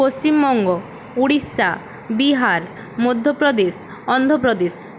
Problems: constant background noise